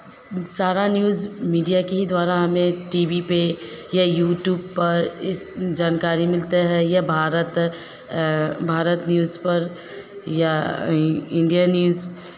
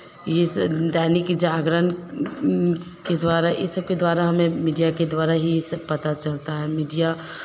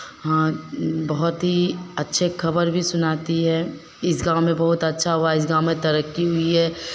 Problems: none marked